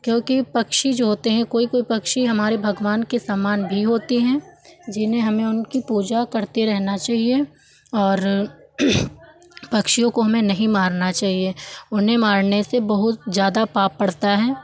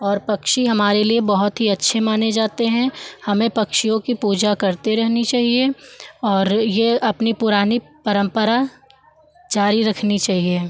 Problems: background sounds at intervals, background conversations at intervals